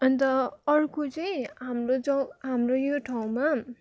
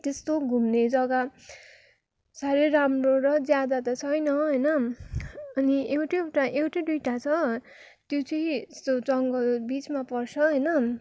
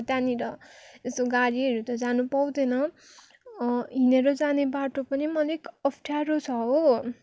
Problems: background sounds at intervals